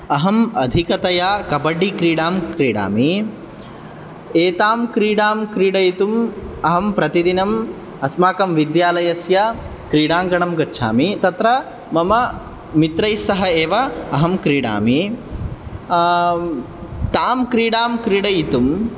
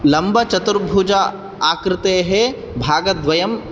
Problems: none marked